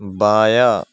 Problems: background sounds at intervals